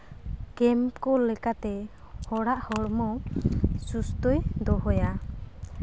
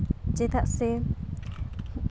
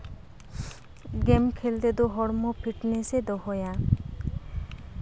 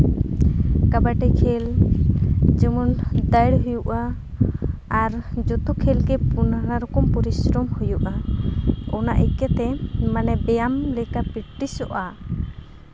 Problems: none marked